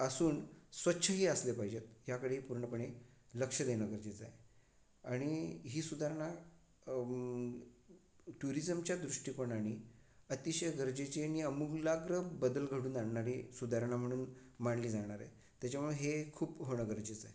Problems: background sounds at intervals